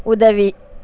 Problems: none marked